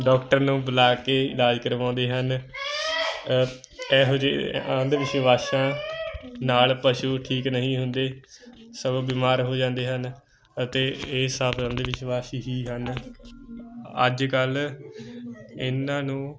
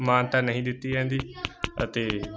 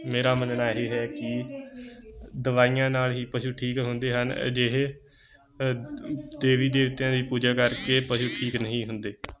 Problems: continuous background conversations